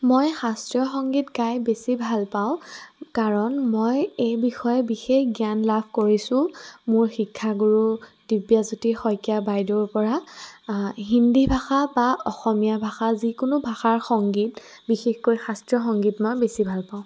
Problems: constant background noise